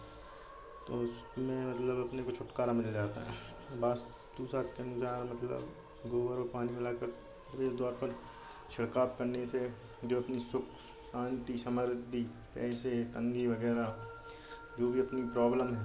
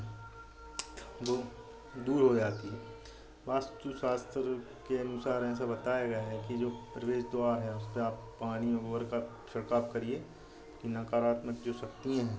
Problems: constant background noise